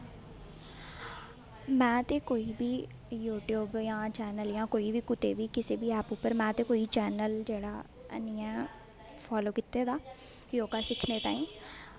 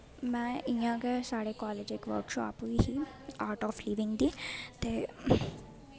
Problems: constant background noise